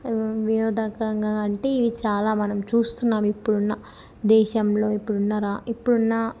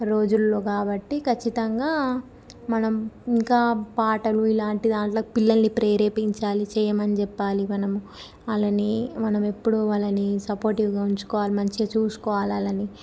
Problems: none marked